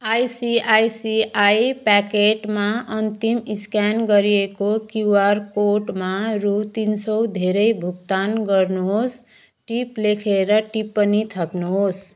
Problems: background sounds at intervals